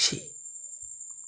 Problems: constant background noise